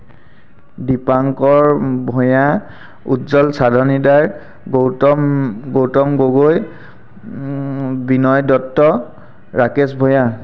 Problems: constant background noise